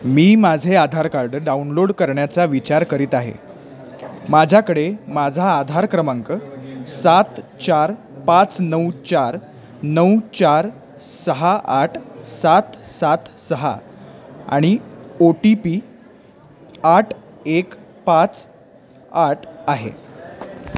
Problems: constant background noise, background conversations at intervals